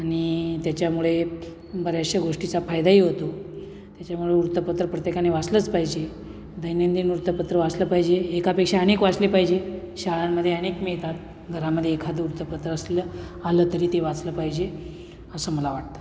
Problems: none marked